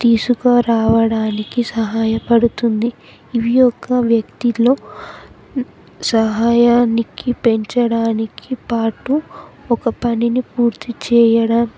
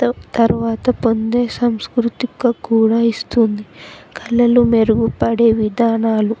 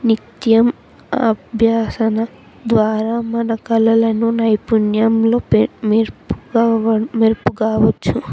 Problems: constant background noise, background conversations at intervals